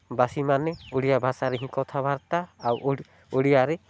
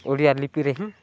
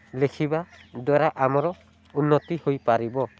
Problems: low volume